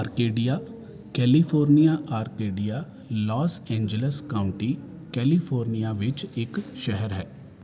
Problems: constant background noise